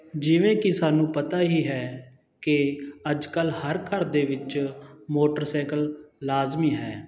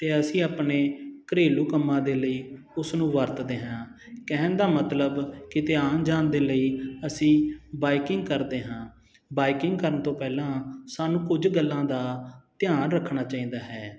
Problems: none marked